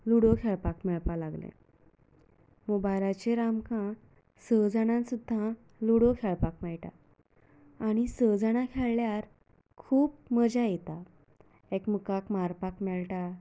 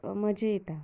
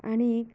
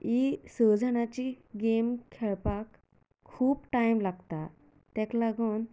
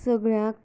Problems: low volume